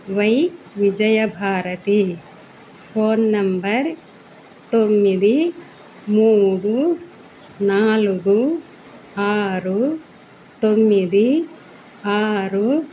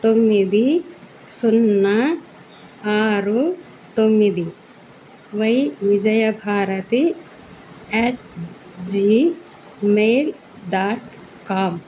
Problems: none marked